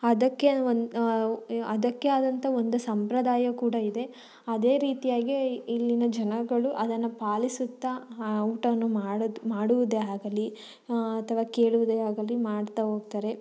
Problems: none marked